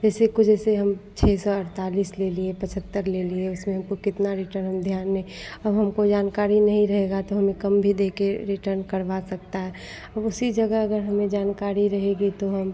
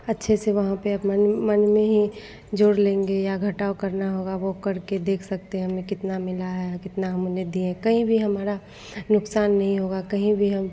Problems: none marked